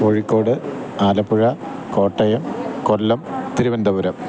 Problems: constant background noise